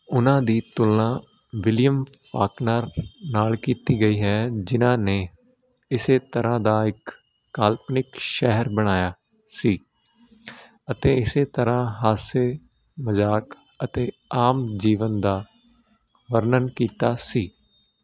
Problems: constant background noise